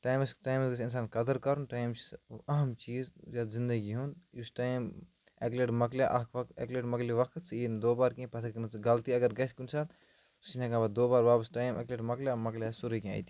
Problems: background sounds at intervals